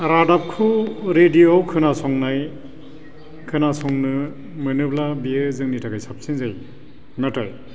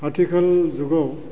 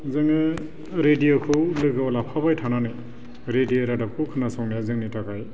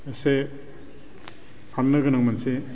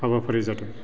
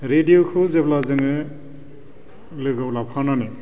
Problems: constant background noise